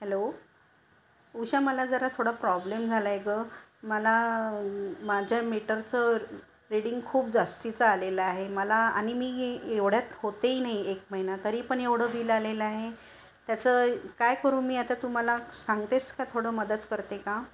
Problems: constant background noise, continuous background conversations